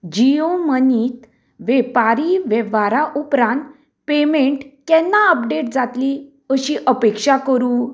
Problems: none marked